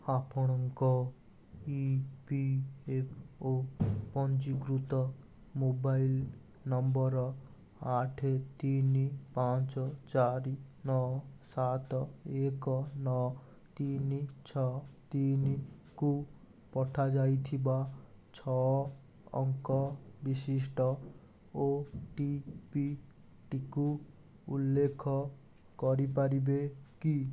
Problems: none marked